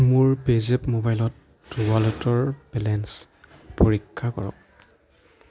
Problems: background sounds at intervals